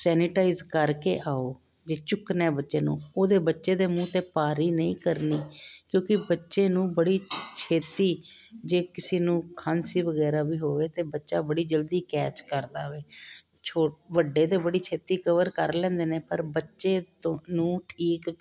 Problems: none marked